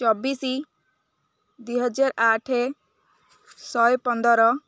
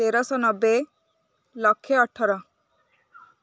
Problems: none marked